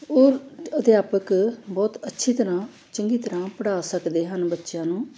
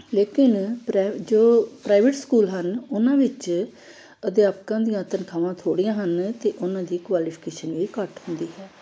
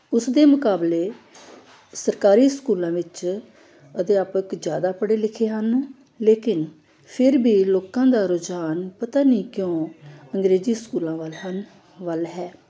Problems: background sounds at intervals